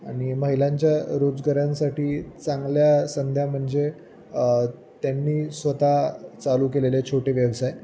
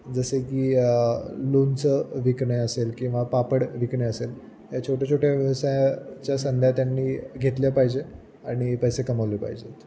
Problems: constant background noise, background conversations at intervals